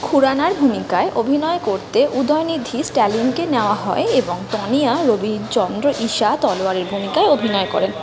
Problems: constant background noise, continuous background conversations